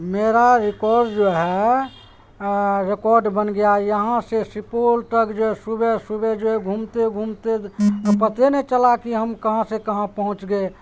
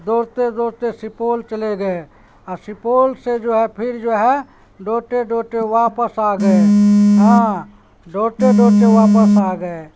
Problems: constant background noise, background conversations at intervals